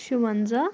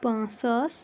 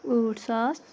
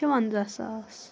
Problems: background sounds at intervals